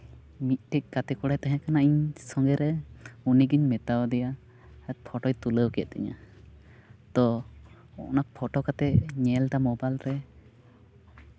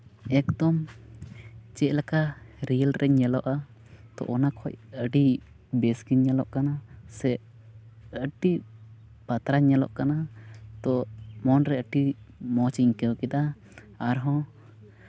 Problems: none marked